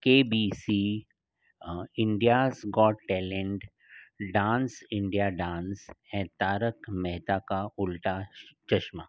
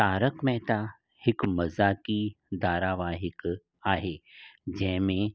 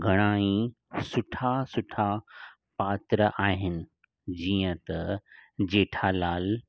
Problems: none marked